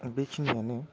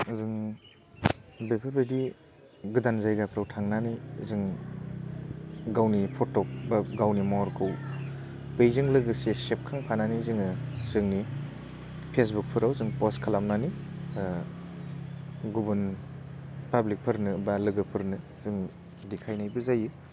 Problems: none marked